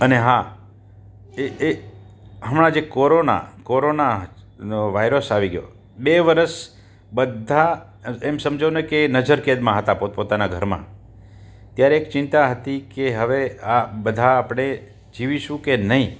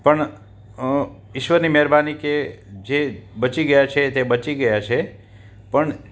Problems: none marked